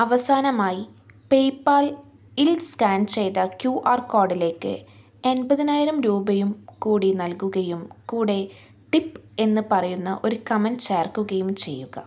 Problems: none marked